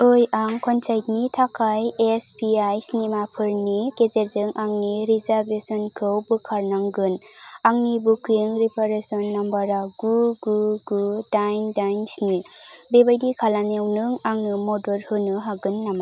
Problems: constant background noise